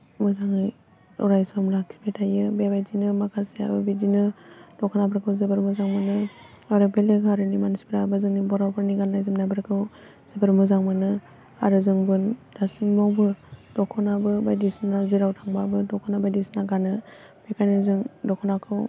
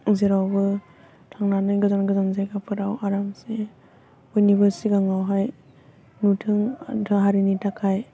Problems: low volume